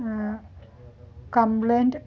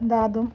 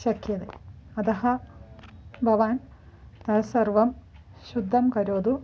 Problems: background sounds at intervals, continuous background conversations